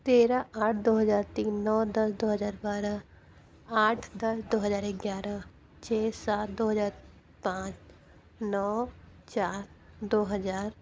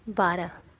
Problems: none marked